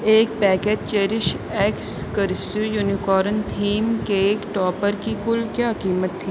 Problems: none marked